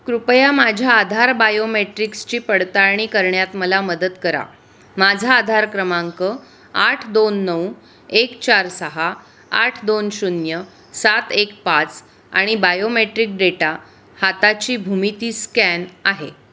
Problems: none marked